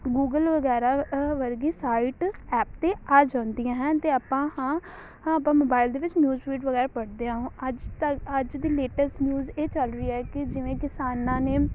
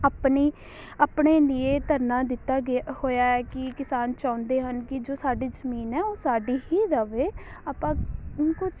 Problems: constant background noise